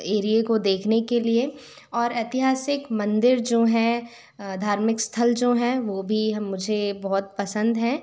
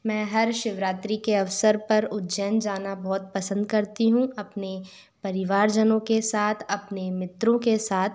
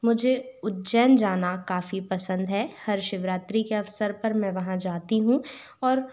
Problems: constant background noise